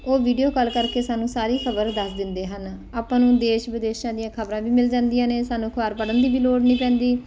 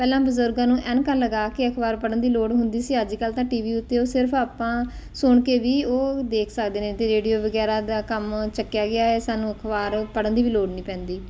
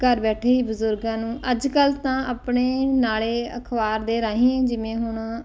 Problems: background conversations at intervals